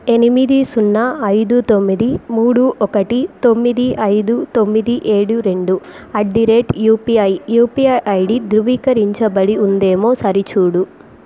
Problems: constant background noise